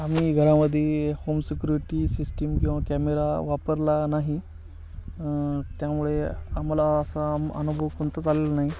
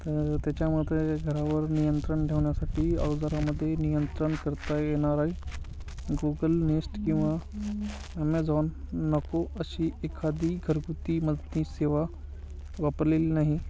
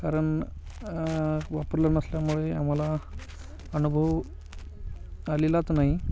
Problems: constant background noise, continuous background conversations